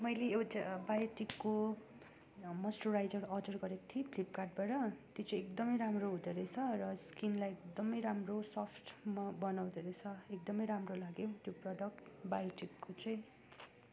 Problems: background sounds at intervals